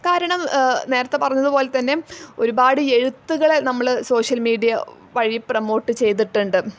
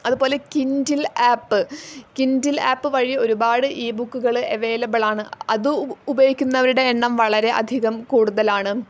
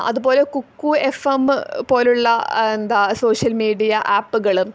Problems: none marked